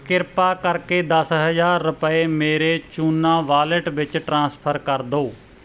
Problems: none marked